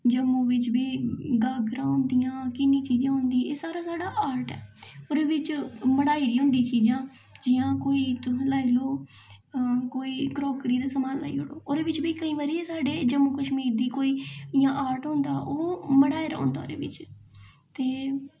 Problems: echo